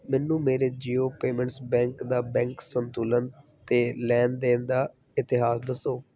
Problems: none marked